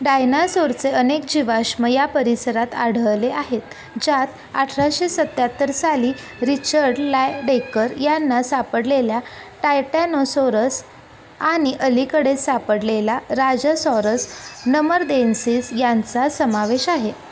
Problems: none marked